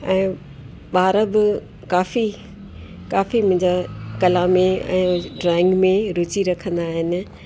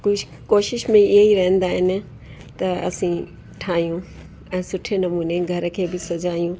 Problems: constant background noise